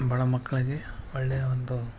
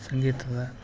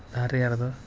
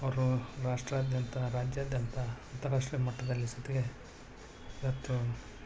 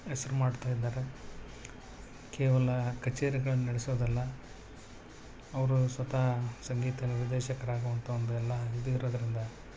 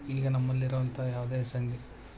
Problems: constant background noise